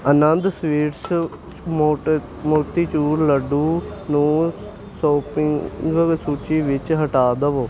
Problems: none marked